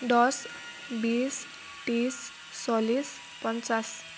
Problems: constant background noise